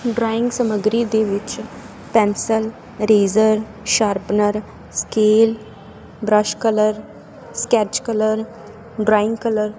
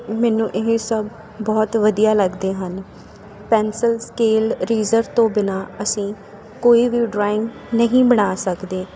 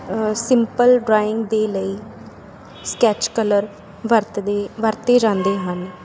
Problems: none marked